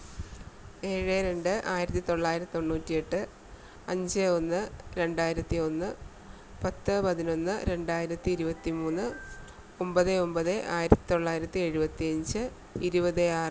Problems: constant background noise